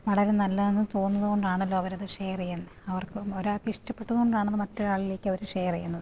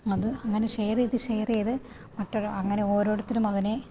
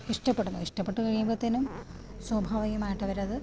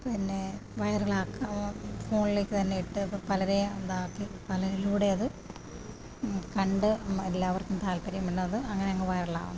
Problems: low volume